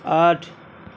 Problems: none marked